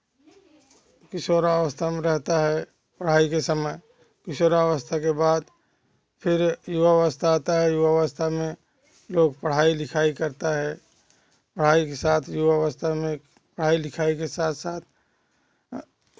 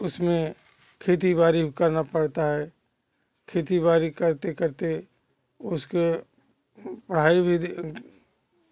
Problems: constant background noise